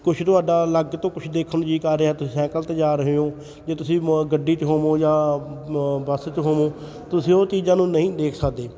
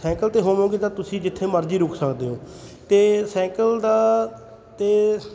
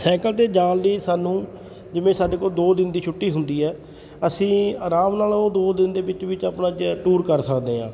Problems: none marked